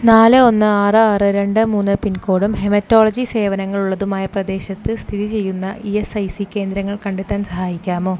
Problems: low volume